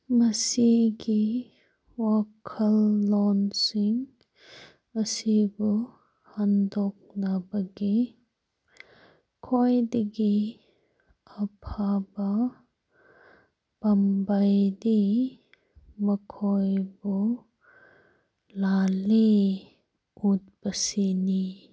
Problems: none marked